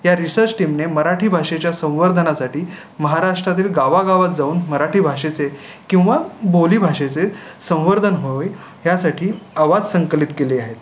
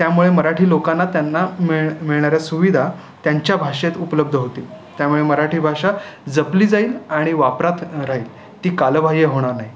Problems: none marked